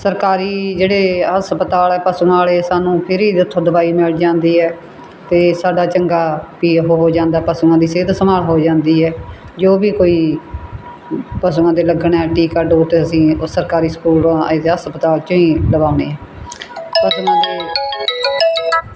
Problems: background sounds at intervals